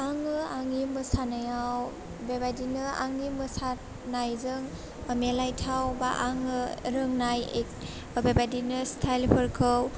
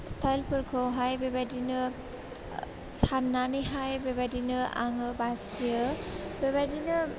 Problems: low volume